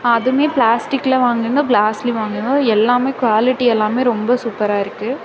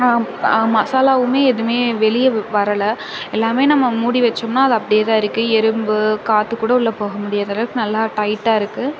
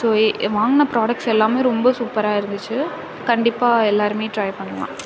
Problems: constant background noise